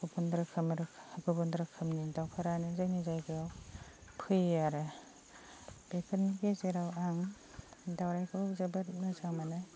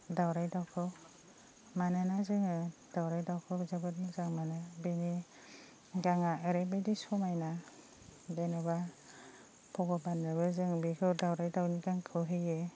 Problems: constant background noise